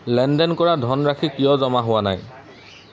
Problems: background sounds at intervals